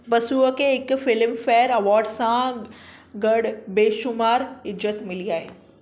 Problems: none marked